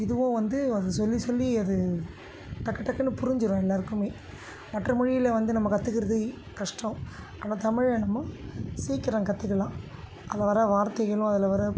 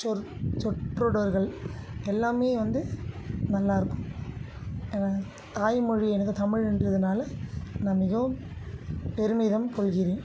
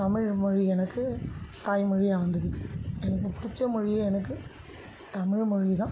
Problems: constant background noise